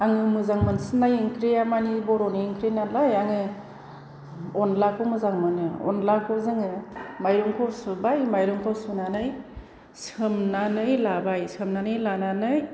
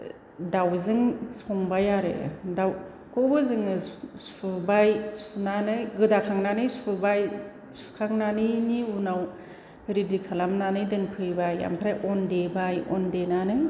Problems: none marked